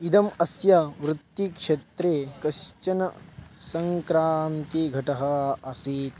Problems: background sounds at intervals